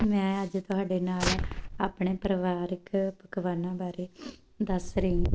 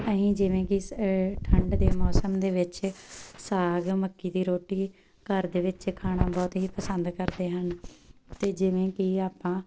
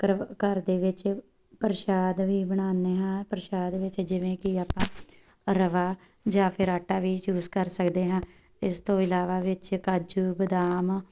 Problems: background sounds at intervals